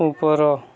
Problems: continuous background conversations